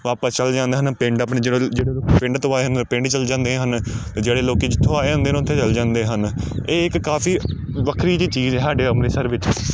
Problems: background sounds at intervals